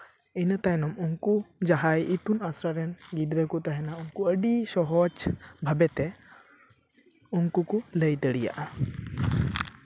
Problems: none marked